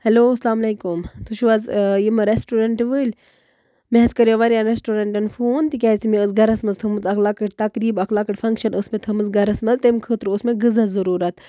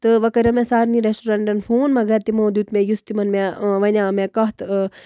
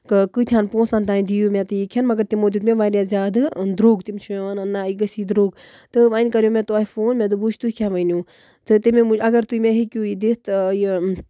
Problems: none marked